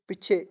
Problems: background conversations at intervals